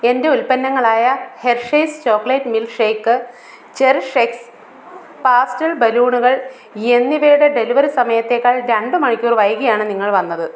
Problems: none marked